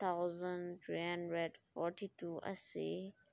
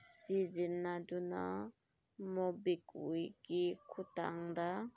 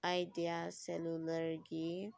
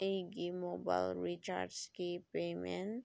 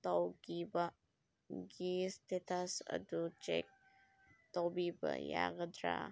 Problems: none marked